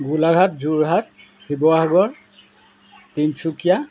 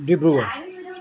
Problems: none marked